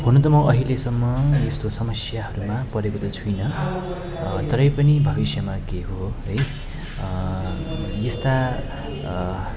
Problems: continuous background conversations